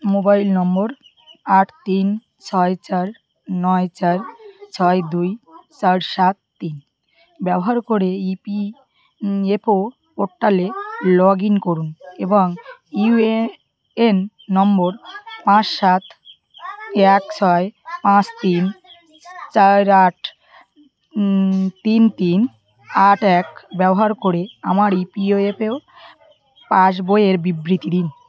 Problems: continuous background conversations